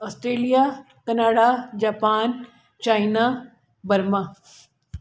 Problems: constant background noise, echo